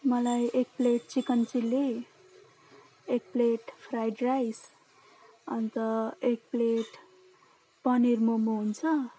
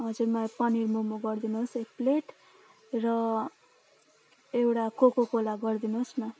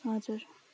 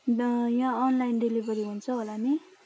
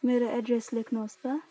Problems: low volume